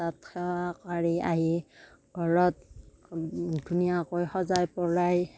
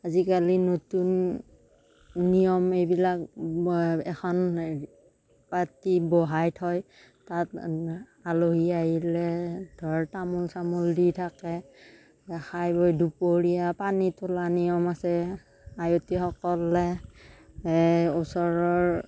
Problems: none marked